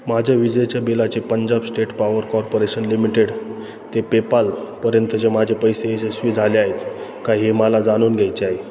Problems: constant background noise